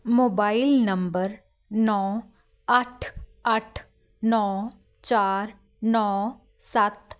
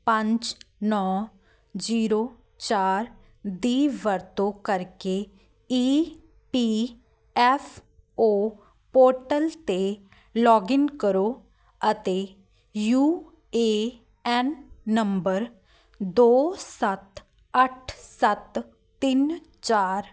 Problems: none marked